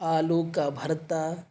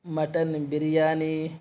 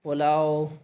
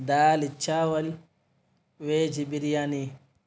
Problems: none marked